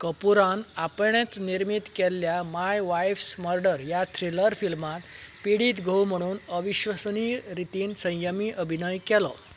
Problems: background sounds at intervals